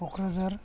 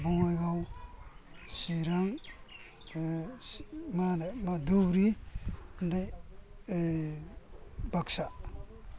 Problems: low volume